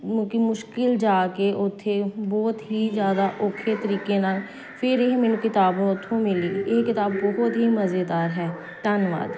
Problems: constant background noise